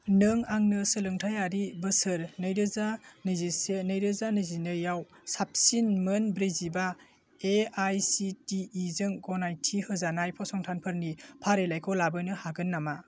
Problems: constant background noise